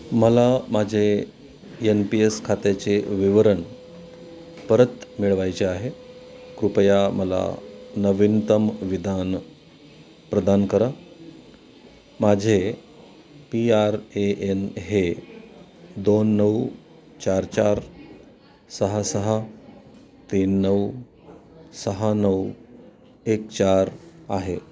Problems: constant background noise, background conversations at intervals